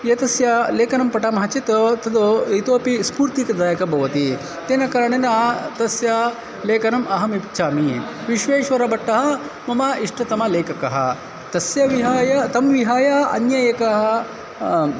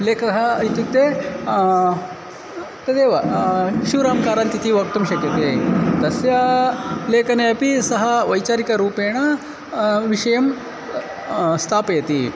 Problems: constant background noise, background conversations at intervals